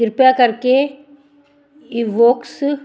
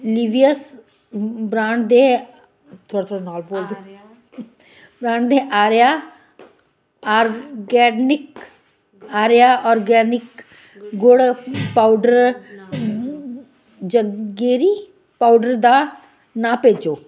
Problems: continuous background conversations